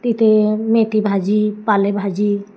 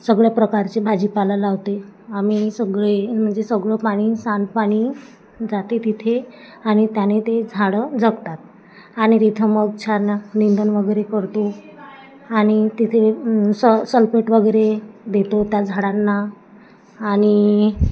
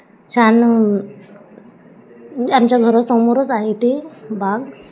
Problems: constant background noise, continuous background conversations